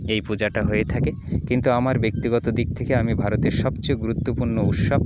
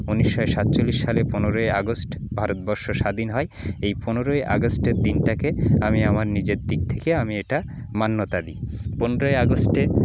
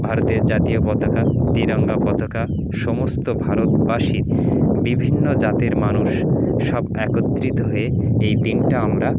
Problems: none marked